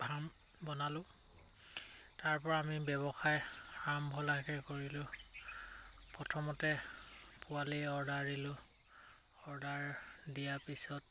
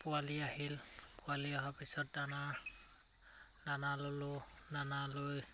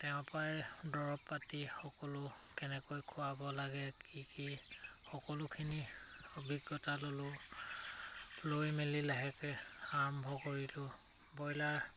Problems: none marked